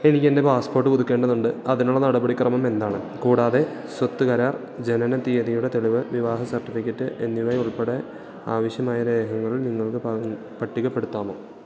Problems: low volume